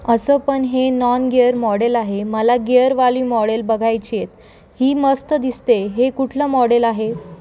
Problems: constant background noise, background conversations at intervals